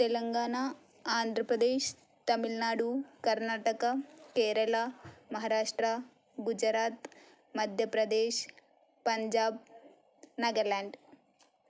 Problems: none marked